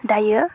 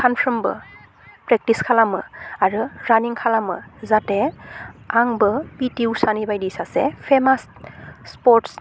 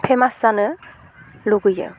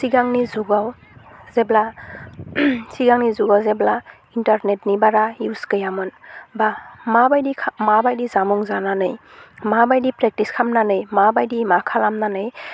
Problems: constant background noise